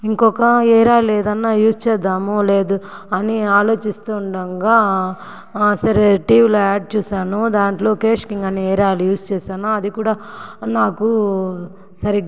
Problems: background sounds at intervals, background conversations at intervals